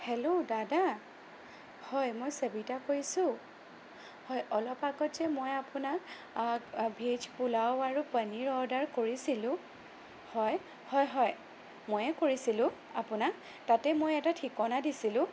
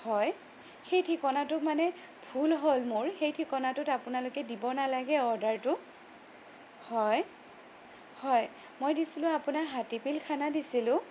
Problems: none marked